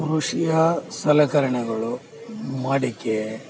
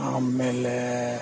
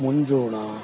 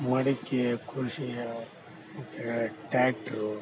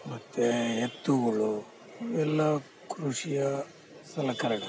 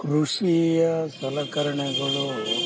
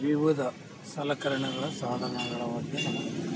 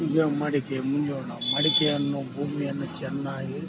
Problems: constant background noise